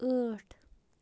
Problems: background sounds at intervals